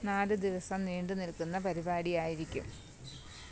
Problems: background sounds at intervals, low volume